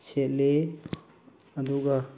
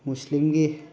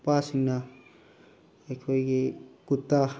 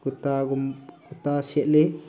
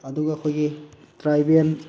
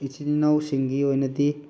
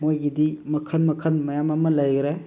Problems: constant background noise